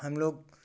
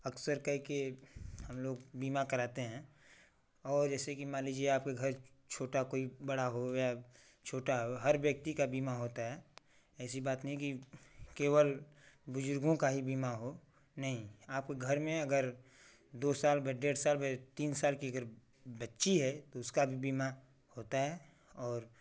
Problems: constant background noise